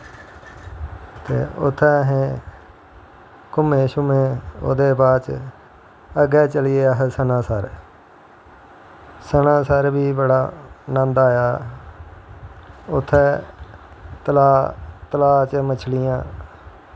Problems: constant background noise